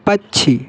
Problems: constant background noise